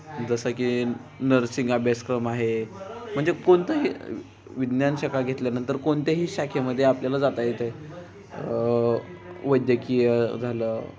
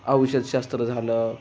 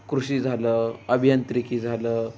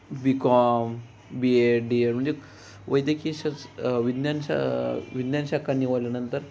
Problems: constant background noise